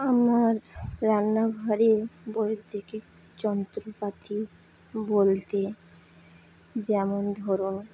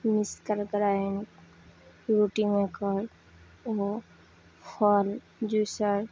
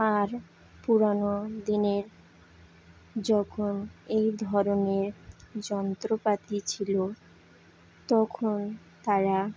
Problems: constant background noise, background conversations at intervals